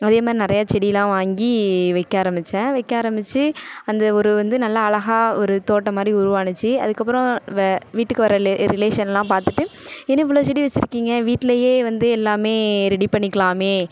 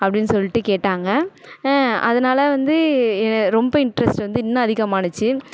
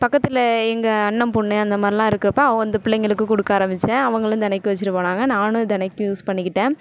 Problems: none marked